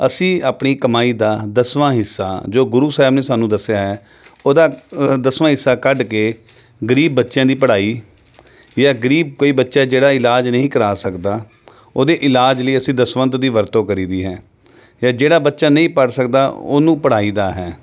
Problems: background sounds at intervals, background conversations at intervals